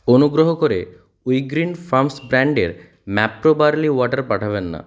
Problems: background sounds at intervals